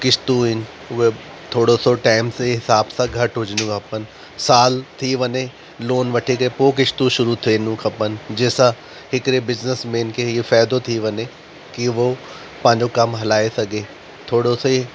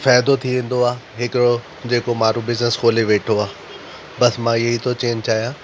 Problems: constant background noise